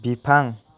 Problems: none marked